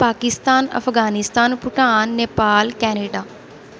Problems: background sounds at intervals